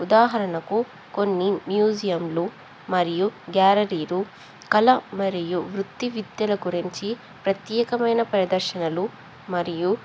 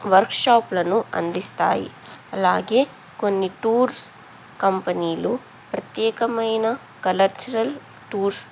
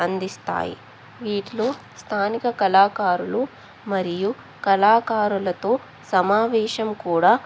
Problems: background sounds at intervals